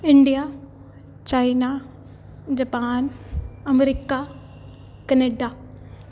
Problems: background sounds at intervals